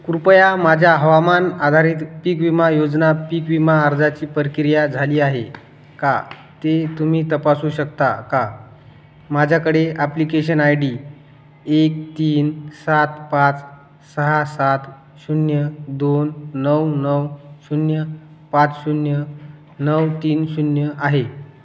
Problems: none marked